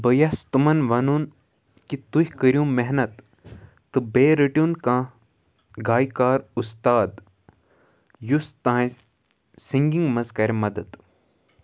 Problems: background sounds at intervals